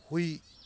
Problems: low volume